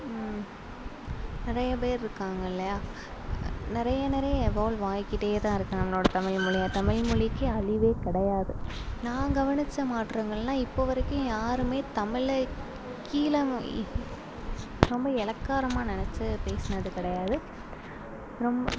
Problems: constant background noise, low volume